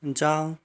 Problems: background sounds at intervals